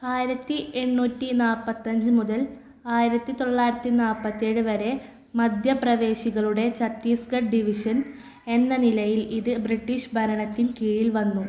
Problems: background sounds at intervals